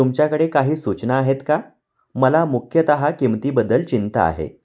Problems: none marked